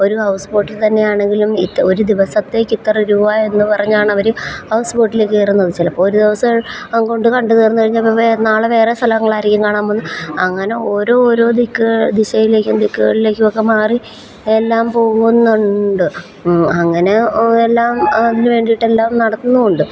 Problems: constant background noise